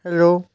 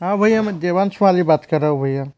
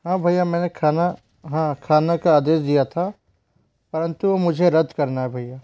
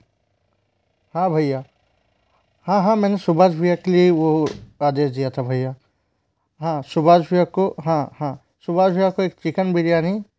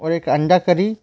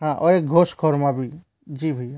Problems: none marked